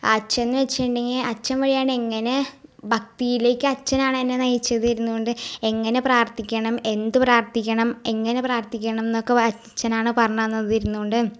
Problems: none marked